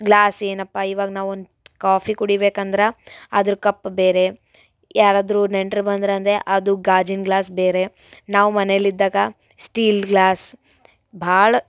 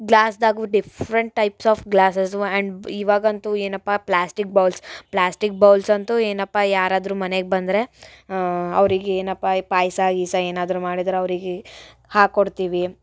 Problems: none marked